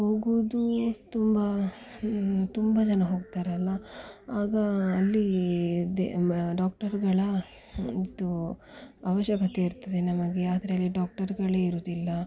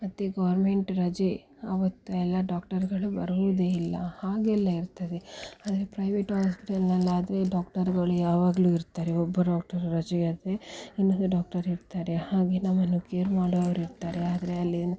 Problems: none marked